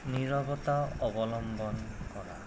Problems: constant background noise